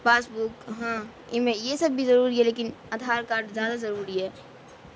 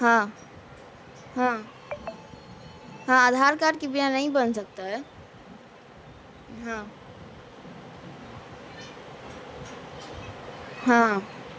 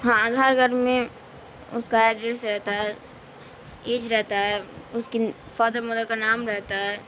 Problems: constant background noise